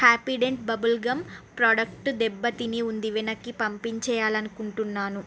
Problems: none marked